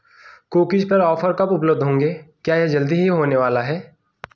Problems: constant background noise